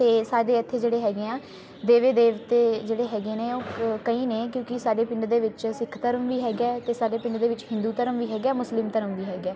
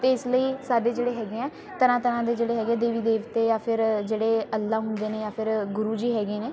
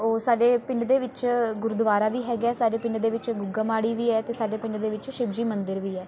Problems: constant background noise